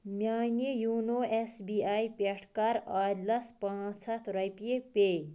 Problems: constant background noise